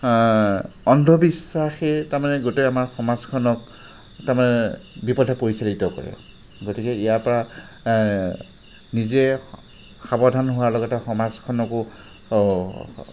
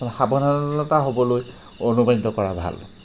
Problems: constant background noise